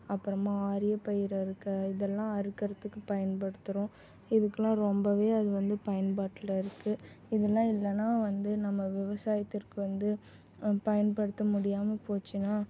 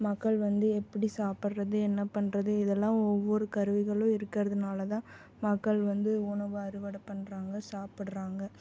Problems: none marked